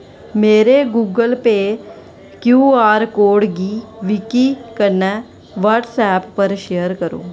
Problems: constant background noise